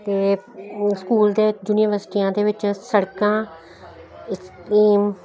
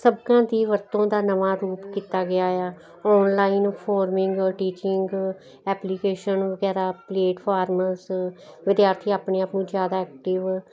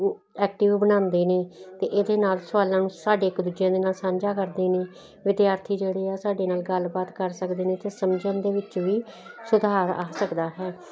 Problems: constant background noise